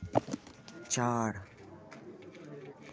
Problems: constant background noise, continuous background conversations